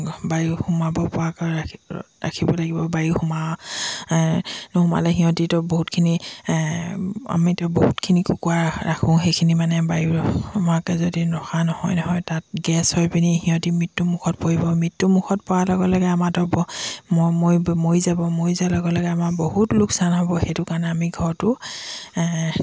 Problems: background sounds at intervals